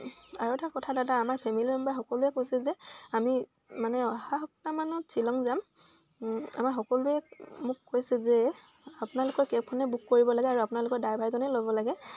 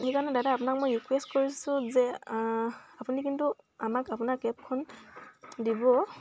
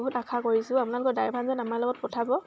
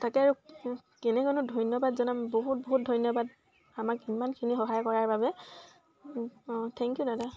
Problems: constant background noise